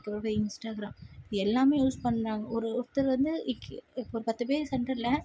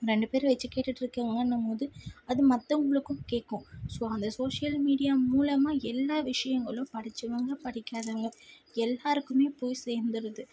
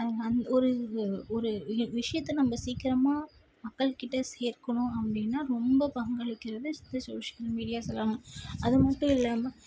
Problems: none marked